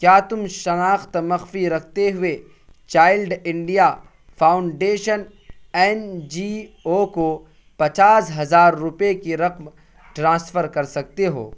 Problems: constant background noise